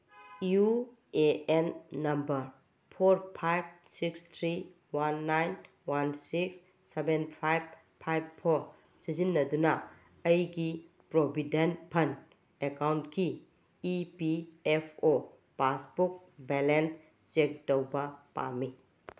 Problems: background sounds at intervals